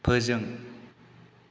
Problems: constant background noise